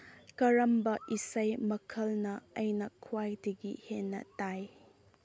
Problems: none marked